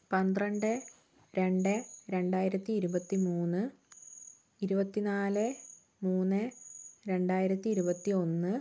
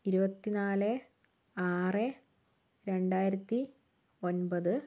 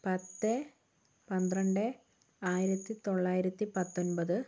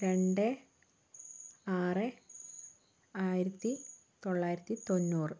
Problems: constant background noise